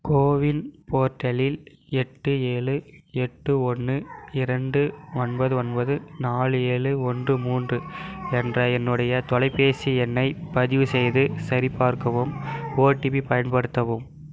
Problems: constant background noise